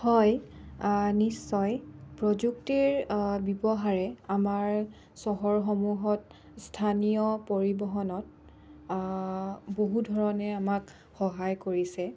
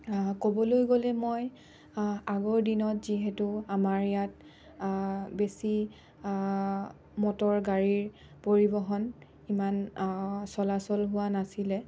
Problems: none marked